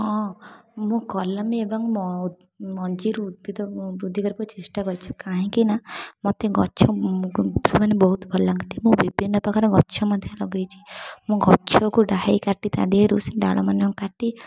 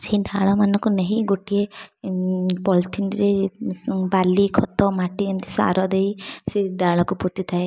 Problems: background sounds at intervals